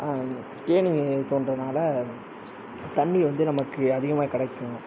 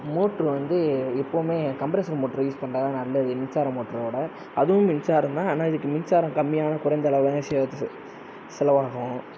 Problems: none marked